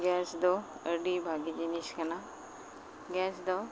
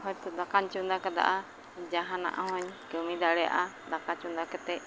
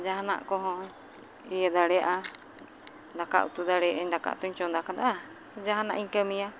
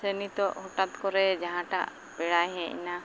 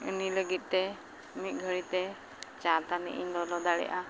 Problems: none marked